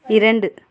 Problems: none marked